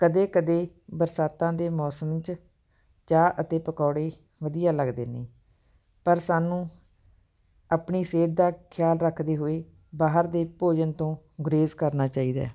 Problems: background sounds at intervals